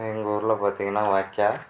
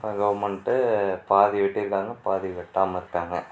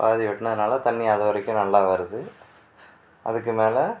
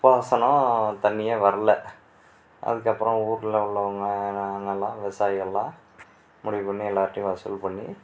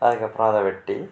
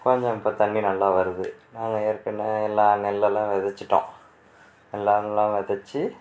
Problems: background sounds at intervals